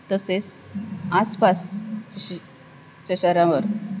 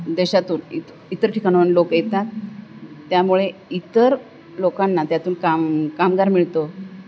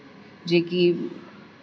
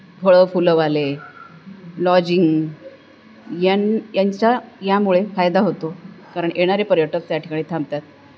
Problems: none marked